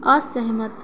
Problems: background sounds at intervals